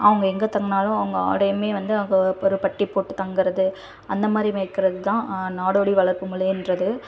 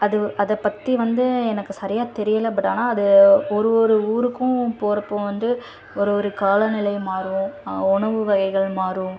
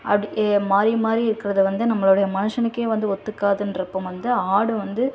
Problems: constant background noise, continuous background conversations